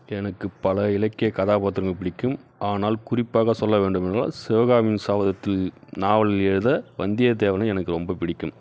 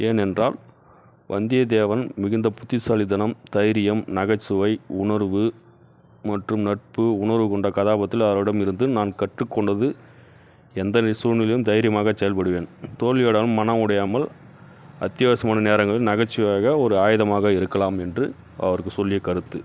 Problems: none marked